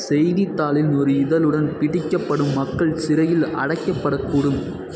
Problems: background sounds at intervals